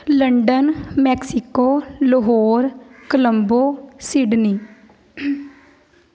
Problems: none marked